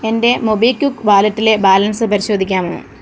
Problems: constant background noise